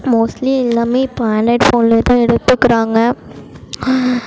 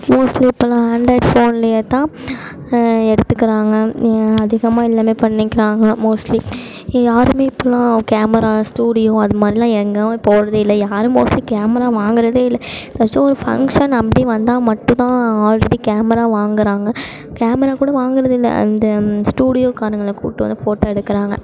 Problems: constant background noise